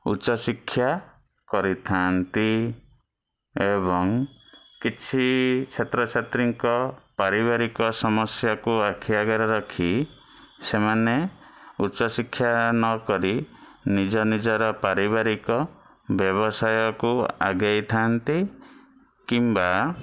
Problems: background sounds at intervals